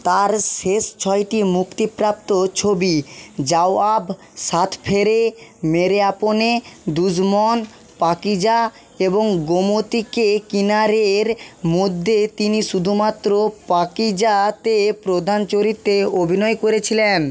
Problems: constant background noise